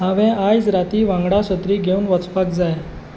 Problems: none marked